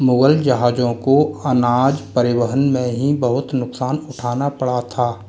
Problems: none marked